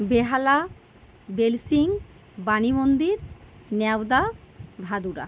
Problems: none marked